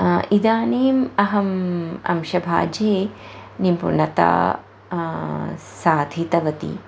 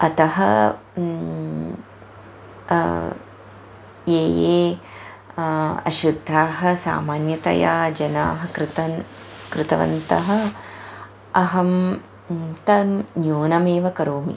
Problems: constant background noise